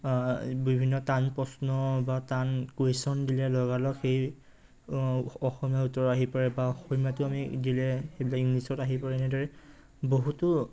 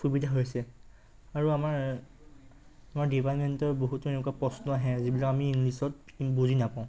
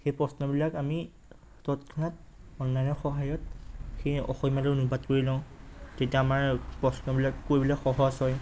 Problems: constant background noise